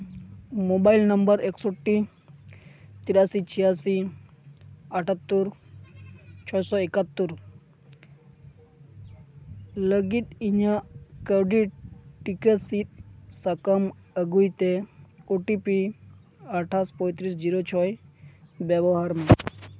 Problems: constant background noise